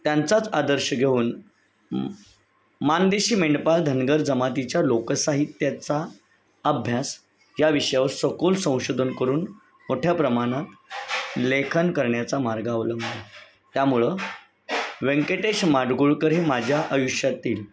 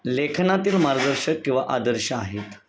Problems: none marked